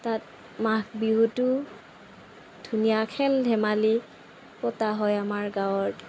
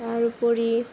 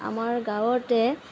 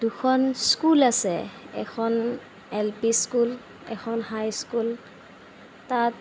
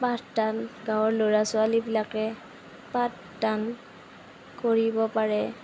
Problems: none marked